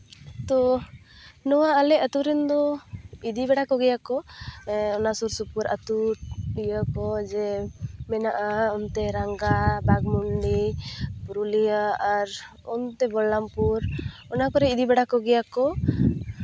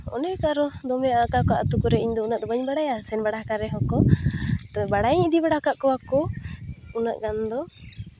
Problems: none marked